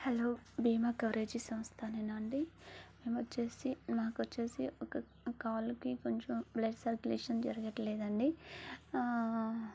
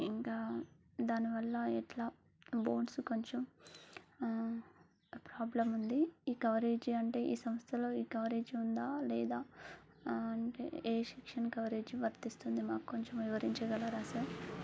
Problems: low volume